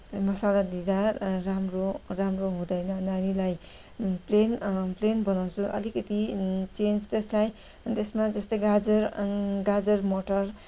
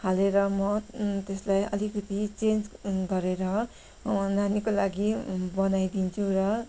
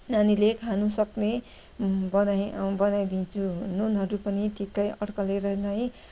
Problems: background sounds at intervals